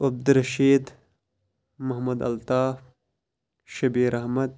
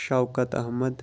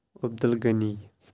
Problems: none marked